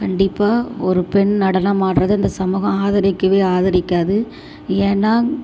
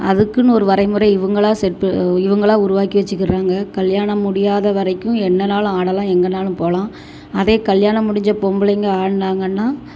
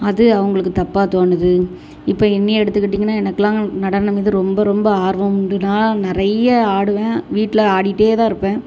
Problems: constant background noise